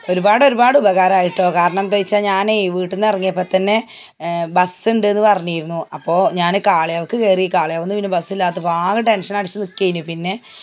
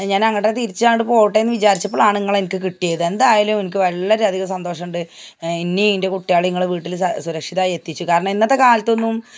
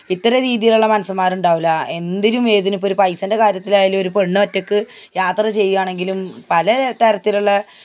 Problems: none marked